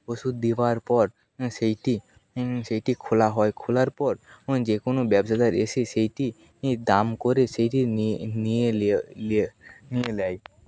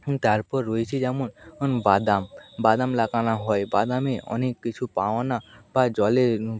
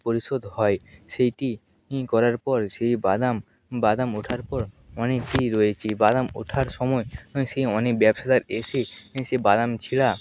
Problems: background sounds at intervals